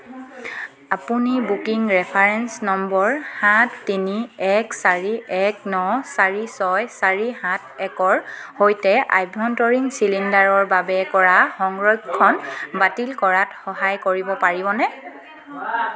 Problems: background sounds at intervals